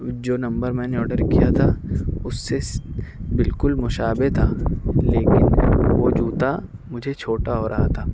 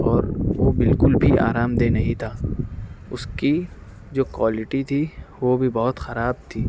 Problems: constant background noise